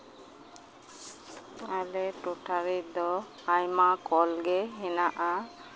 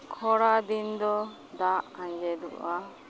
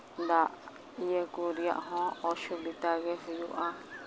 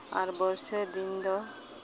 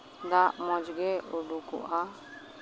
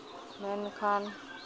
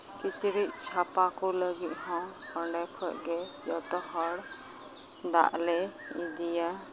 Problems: constant background noise, background conversations at intervals